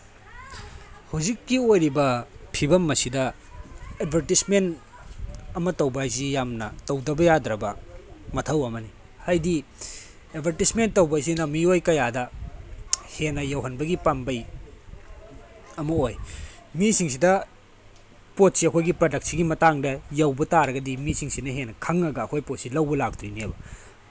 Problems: background sounds at intervals